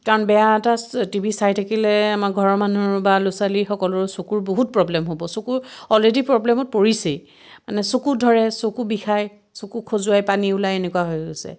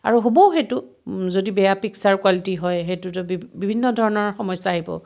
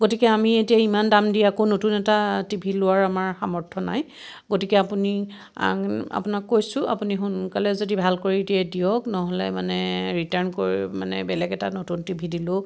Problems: none marked